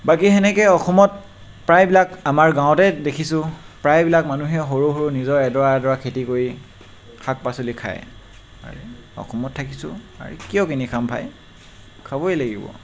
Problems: constant background noise